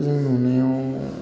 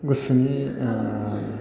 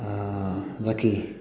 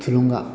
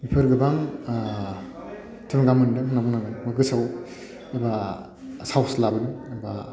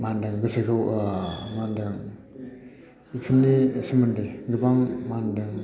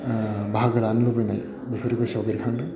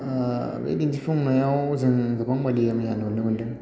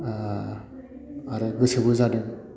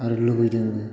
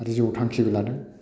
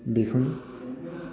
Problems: none marked